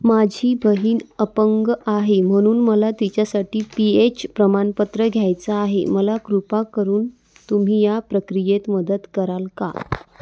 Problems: constant background noise